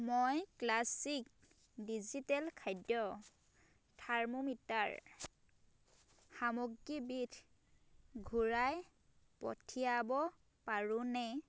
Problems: none marked